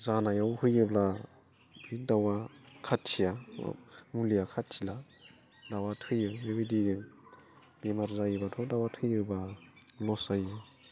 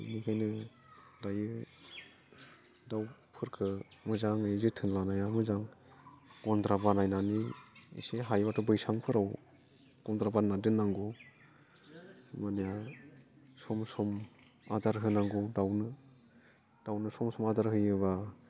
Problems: low volume